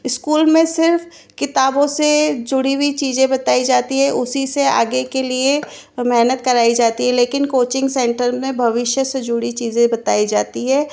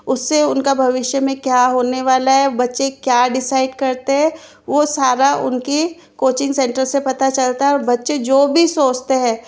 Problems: none marked